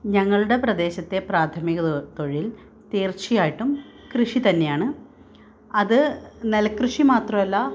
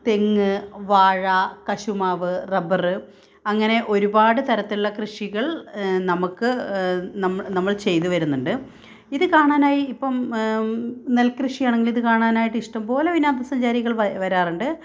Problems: none marked